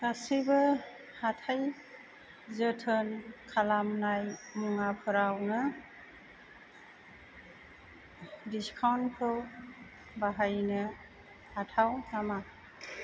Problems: constant background noise